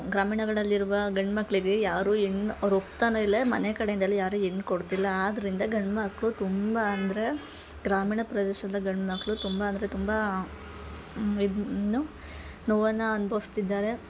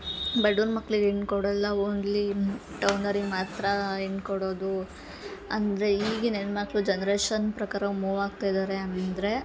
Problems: background sounds at intervals